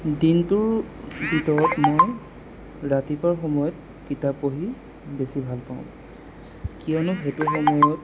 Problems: constant background noise